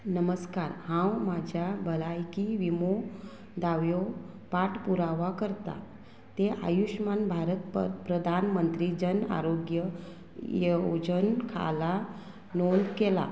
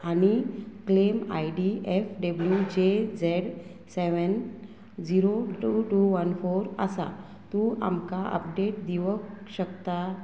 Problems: constant background noise